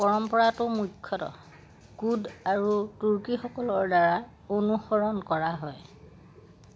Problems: none marked